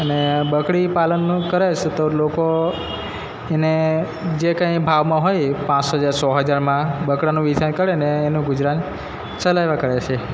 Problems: background sounds at intervals